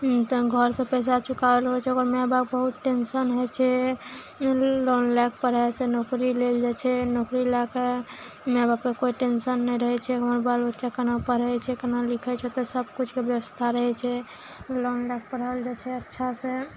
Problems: none marked